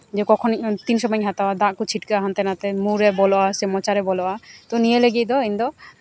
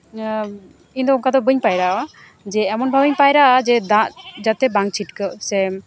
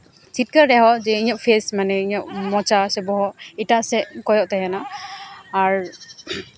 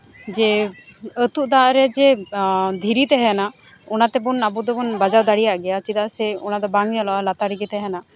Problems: constant background noise